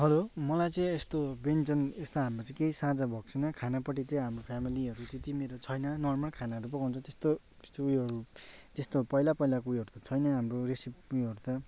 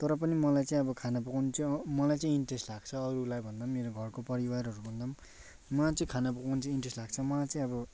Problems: background sounds at intervals